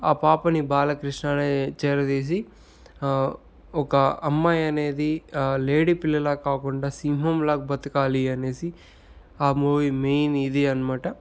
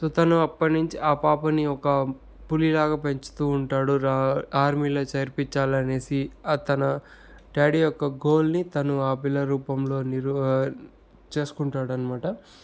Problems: none marked